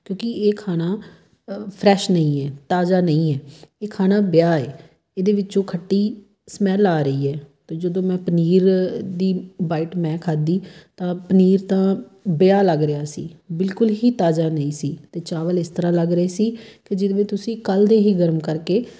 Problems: background sounds at intervals